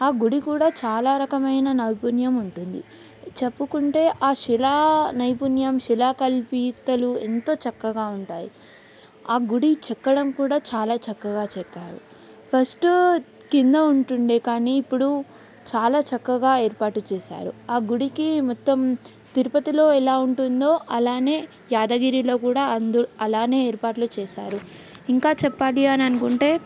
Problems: background sounds at intervals